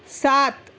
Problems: constant background noise